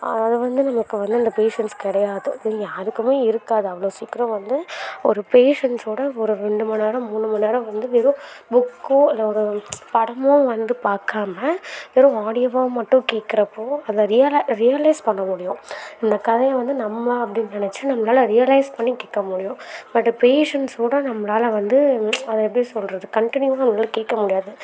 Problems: none marked